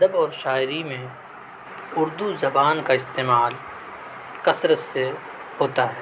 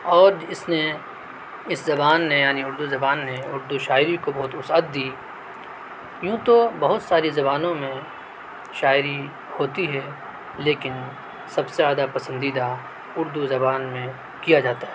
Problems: none marked